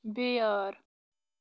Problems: background sounds at intervals, low volume